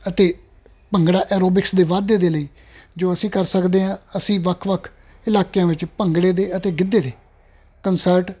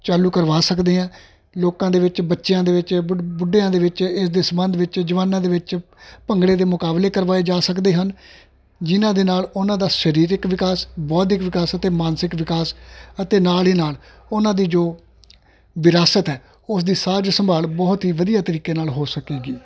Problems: constant background noise